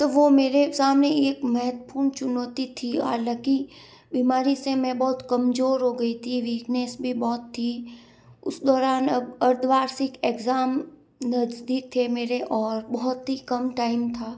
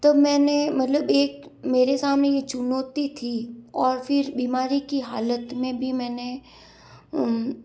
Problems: background sounds at intervals